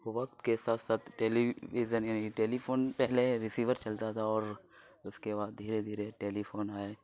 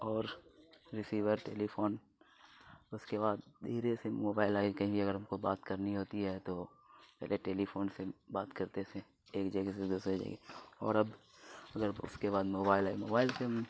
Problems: constant background noise